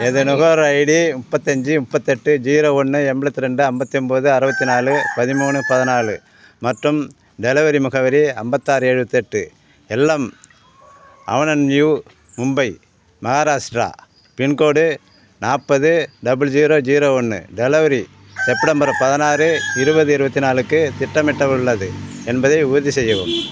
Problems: constant background noise